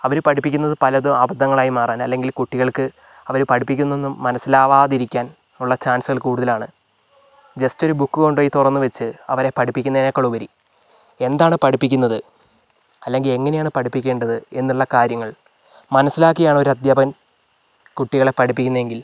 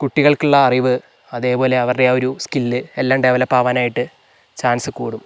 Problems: none marked